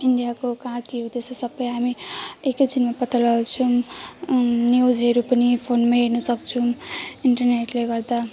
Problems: none marked